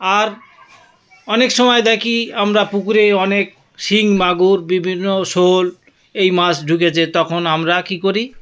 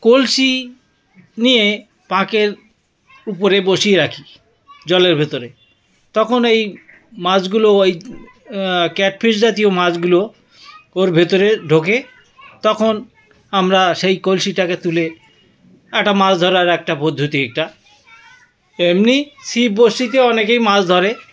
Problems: background sounds at intervals